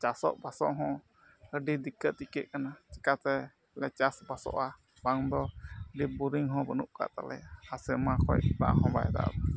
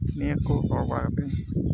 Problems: background sounds at intervals, low volume